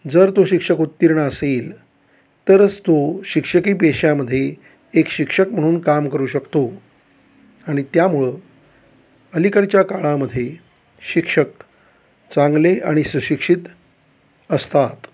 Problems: none marked